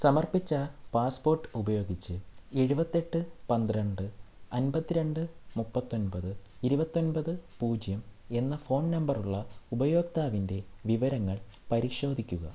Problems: low volume